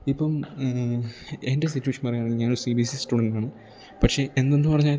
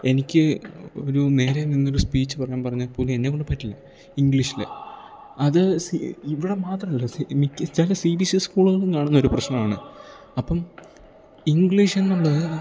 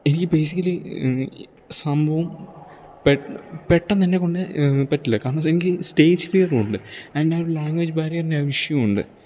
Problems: none marked